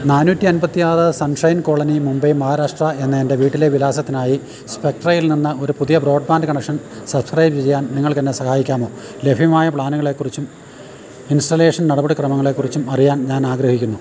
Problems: none marked